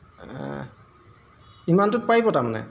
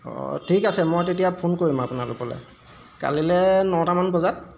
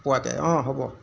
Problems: background sounds at intervals